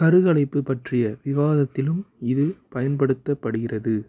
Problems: background conversations at intervals